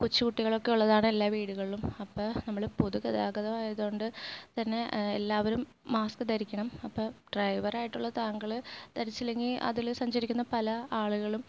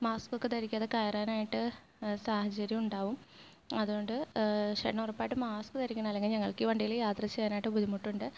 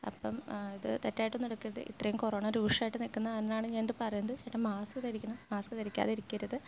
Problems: low volume